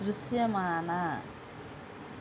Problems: constant background noise